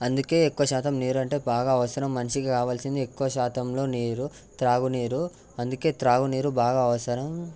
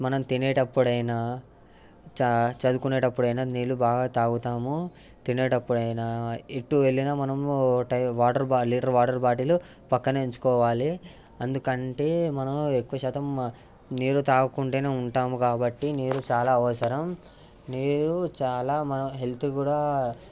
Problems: constant background noise